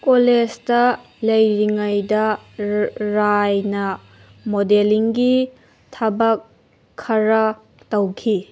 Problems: background sounds at intervals